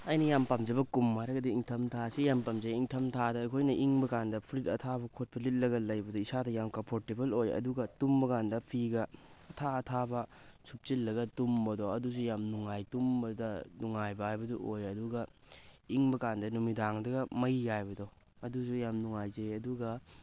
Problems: none marked